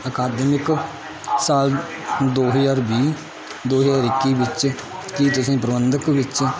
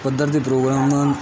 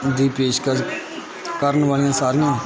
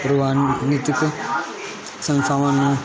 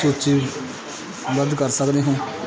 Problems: constant background noise, continuous background conversations